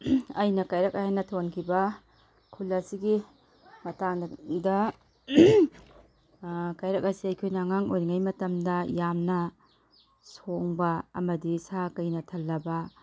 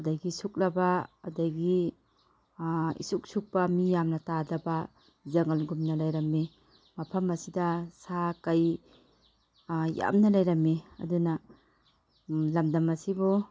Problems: background sounds at intervals